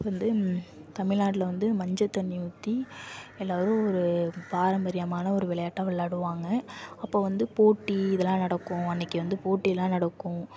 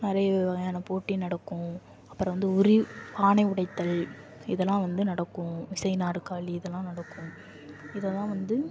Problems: constant background noise